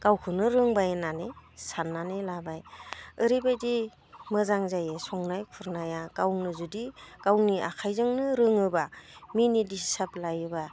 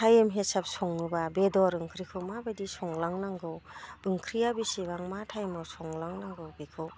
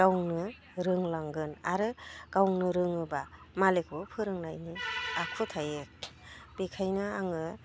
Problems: none marked